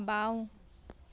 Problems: none marked